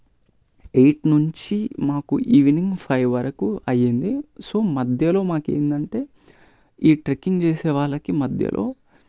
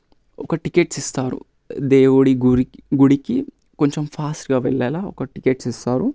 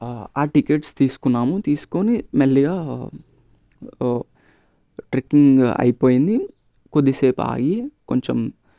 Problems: none marked